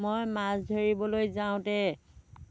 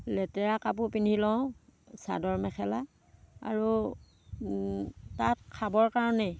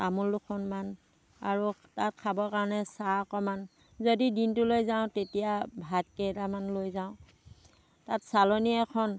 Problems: background sounds at intervals